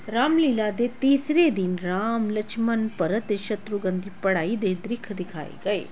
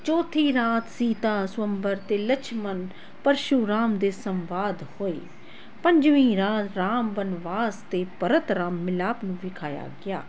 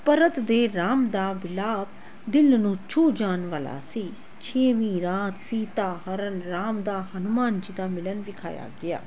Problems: constant background noise